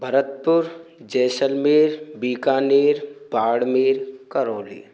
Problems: constant background noise